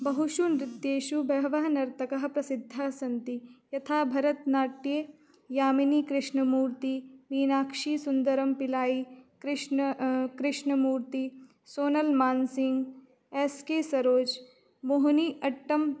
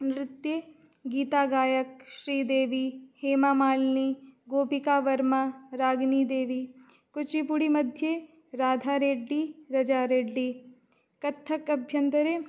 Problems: constant background noise